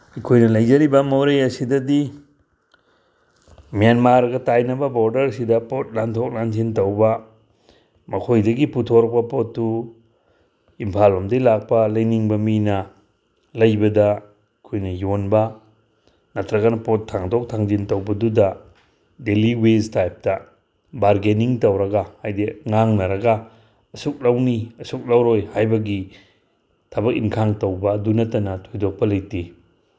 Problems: none marked